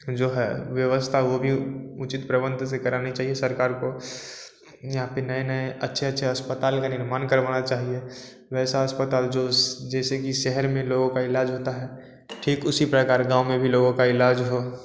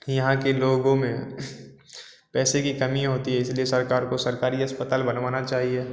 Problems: none marked